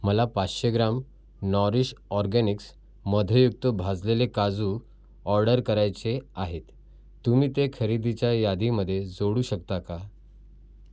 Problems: none marked